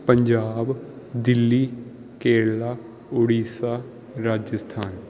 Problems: background sounds at intervals